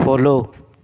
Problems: none marked